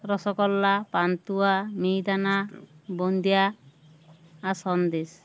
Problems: none marked